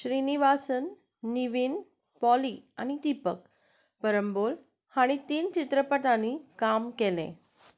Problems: none marked